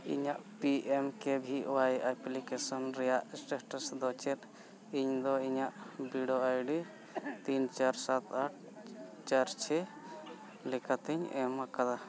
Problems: background sounds at intervals, background conversations at intervals